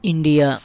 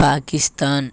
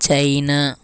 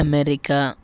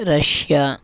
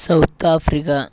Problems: background sounds at intervals